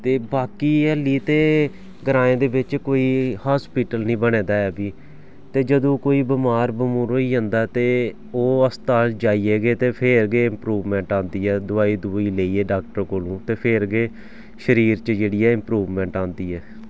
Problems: background sounds at intervals